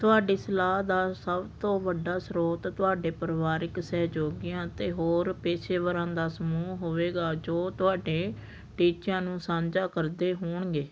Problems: none marked